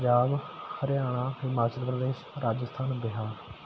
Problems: none marked